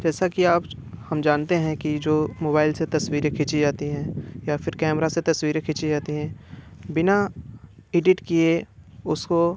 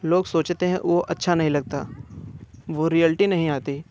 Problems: none marked